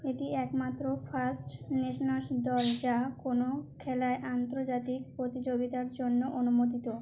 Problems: constant background noise